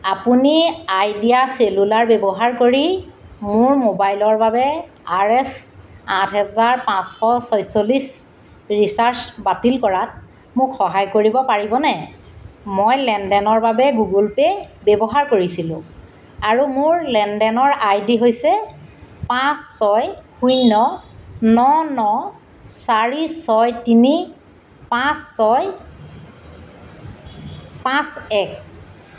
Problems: constant background noise